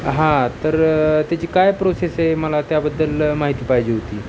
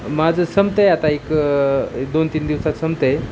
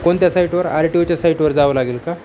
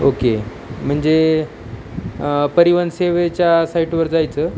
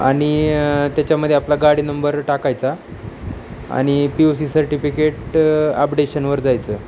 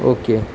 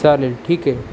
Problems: none marked